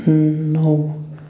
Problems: constant background noise